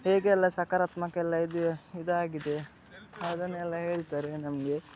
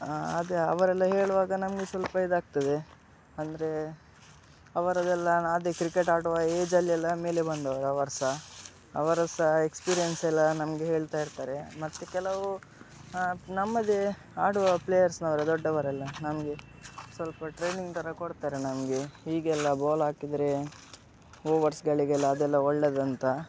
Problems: background sounds at intervals